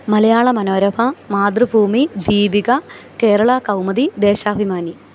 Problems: constant background noise